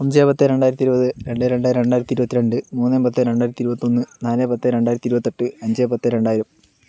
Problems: none marked